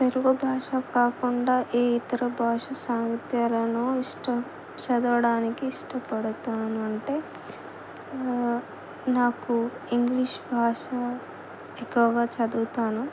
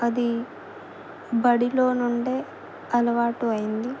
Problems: none marked